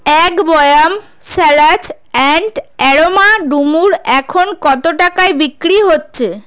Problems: none marked